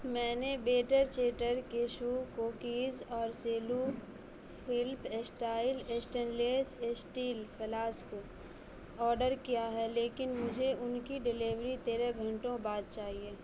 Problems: constant background noise, low volume